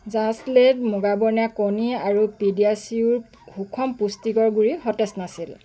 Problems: constant background noise